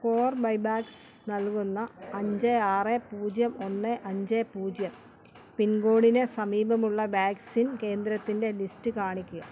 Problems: background sounds at intervals